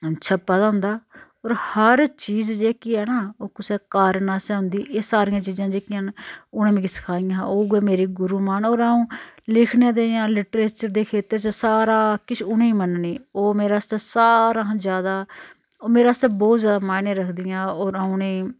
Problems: none marked